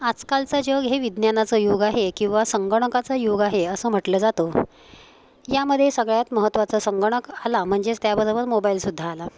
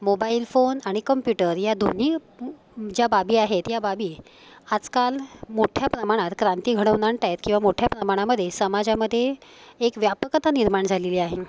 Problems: constant background noise